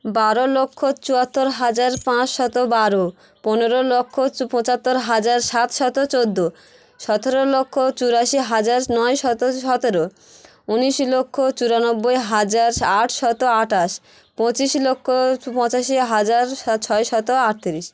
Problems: continuous background conversations